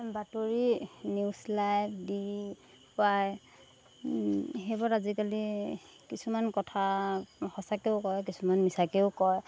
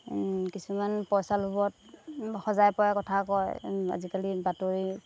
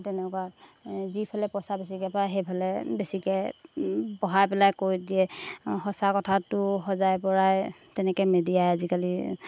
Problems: background sounds at intervals